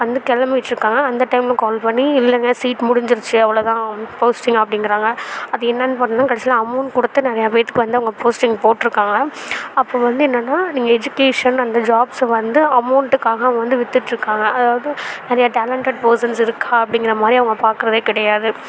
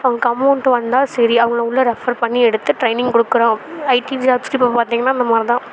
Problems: constant background noise